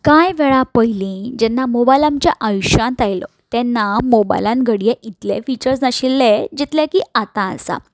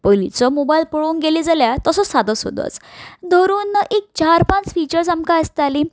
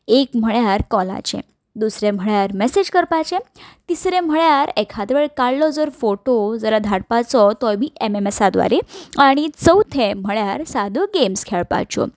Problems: none marked